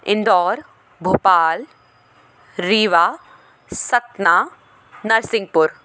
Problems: background conversations at intervals